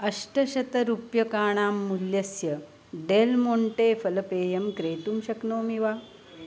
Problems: constant background noise